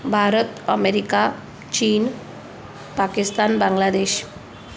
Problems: none marked